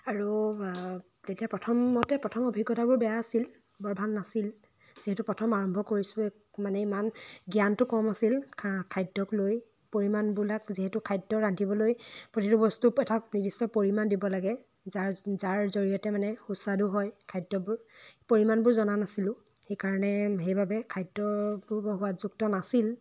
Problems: none marked